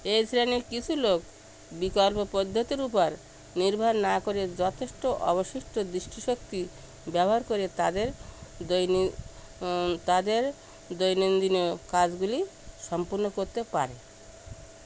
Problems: constant background noise